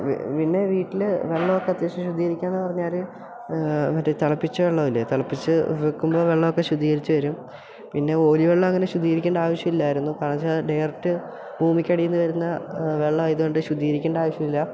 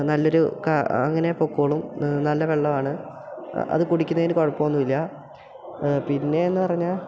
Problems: background sounds at intervals